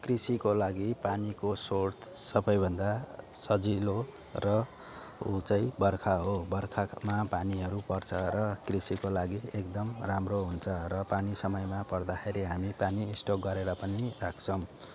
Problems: constant background noise, background conversations at intervals